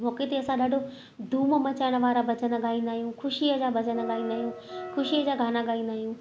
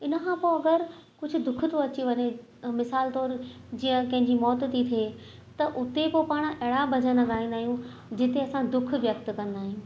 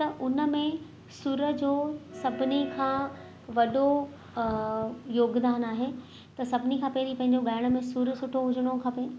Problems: constant background noise, echo